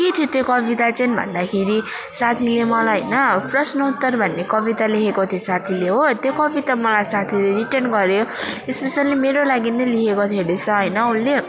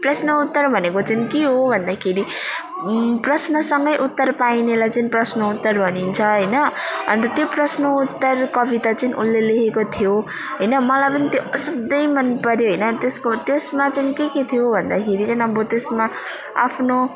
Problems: continuous background conversations